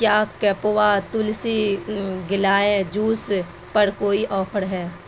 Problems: constant background noise